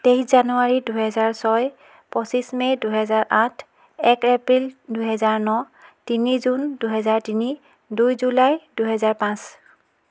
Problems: background conversations at intervals